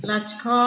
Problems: background sounds at intervals